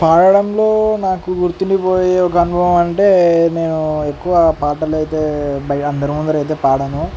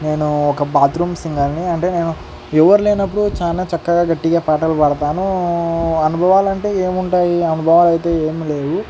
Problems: constant background noise